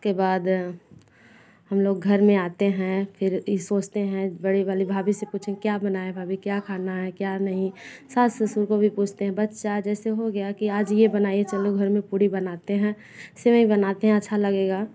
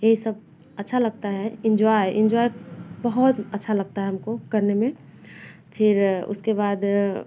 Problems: none marked